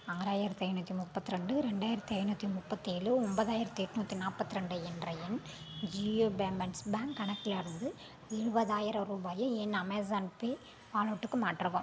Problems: background sounds at intervals